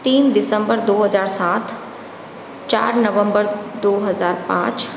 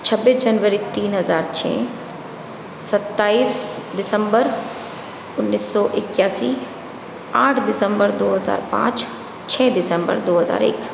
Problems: constant background noise